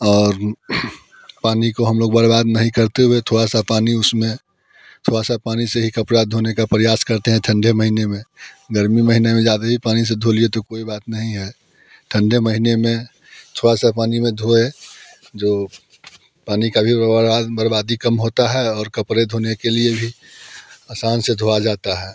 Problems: constant background noise, continuous background conversations